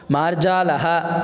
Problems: none marked